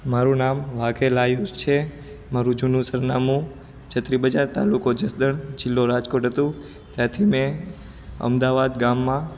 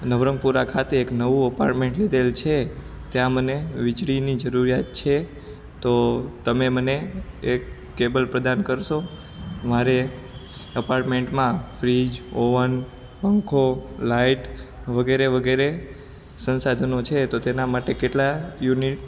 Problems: background sounds at intervals